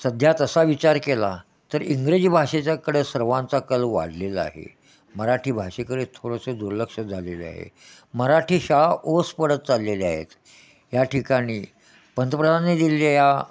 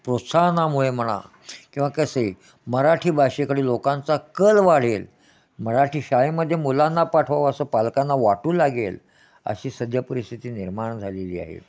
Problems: none marked